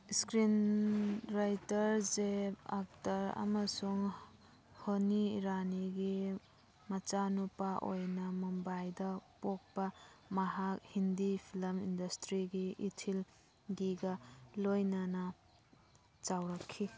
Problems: background sounds at intervals